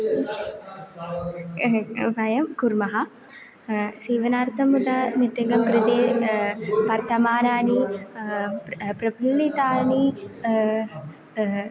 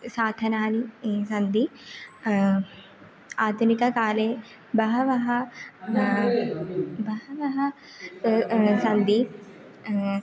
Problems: background conversations at intervals